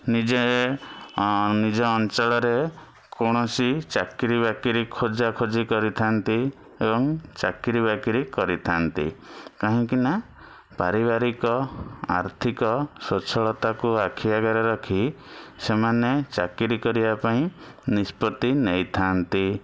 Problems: background sounds at intervals